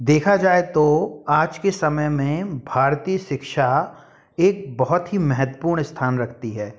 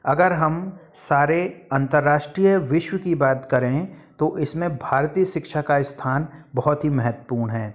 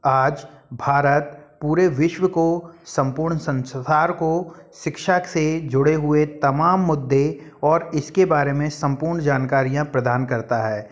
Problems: none marked